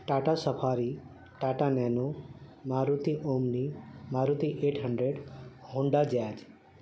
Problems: constant background noise